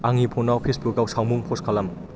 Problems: constant background noise